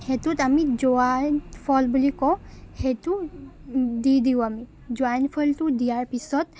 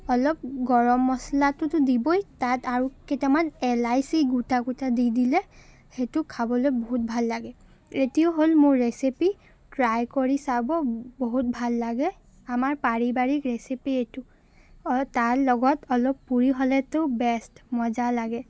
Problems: constant background noise